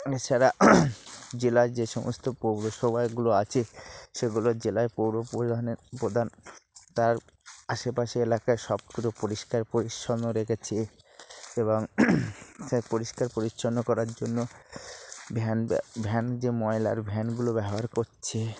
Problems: constant background noise, background conversations at intervals